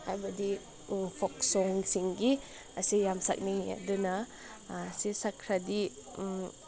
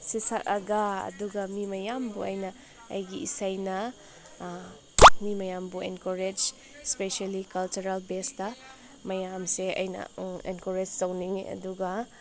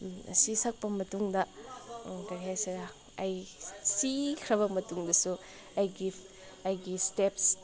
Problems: none marked